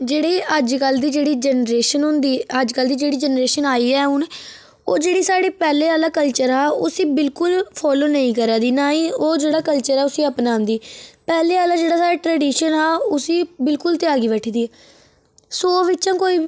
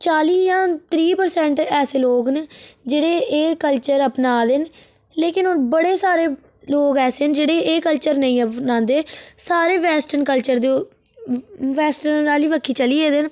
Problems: none marked